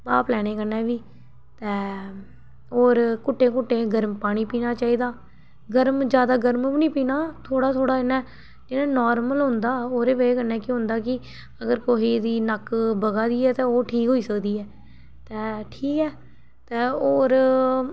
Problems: background sounds at intervals